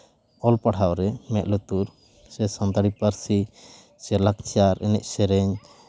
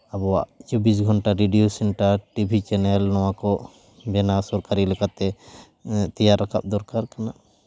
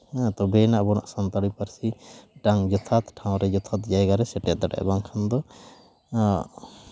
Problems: none marked